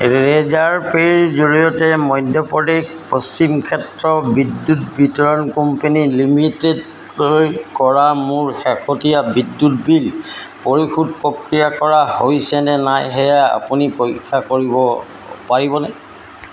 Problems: none marked